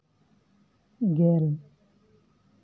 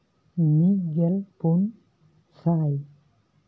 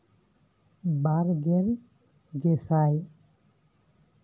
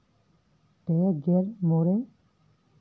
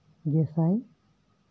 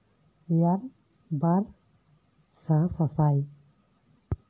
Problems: none marked